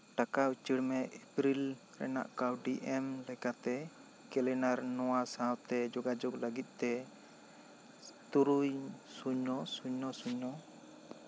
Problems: constant background noise